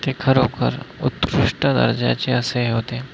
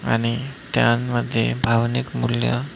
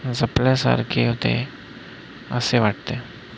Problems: none marked